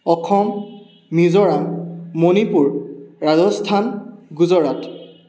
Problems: background sounds at intervals